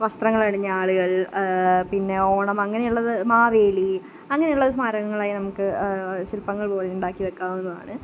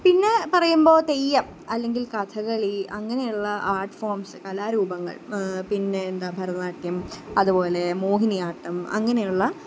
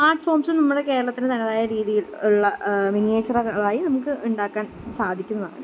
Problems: none marked